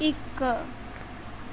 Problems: constant background noise